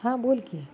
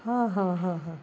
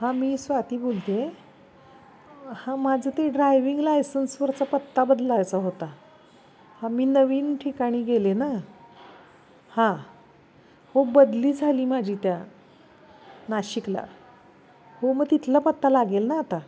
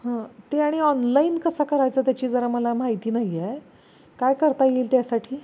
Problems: none marked